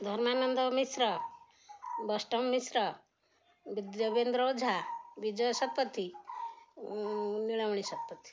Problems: none marked